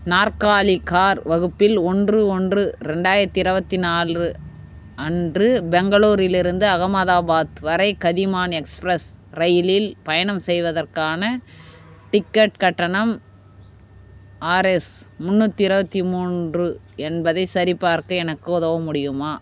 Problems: background sounds at intervals